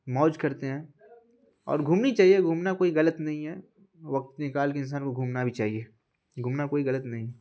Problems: constant background noise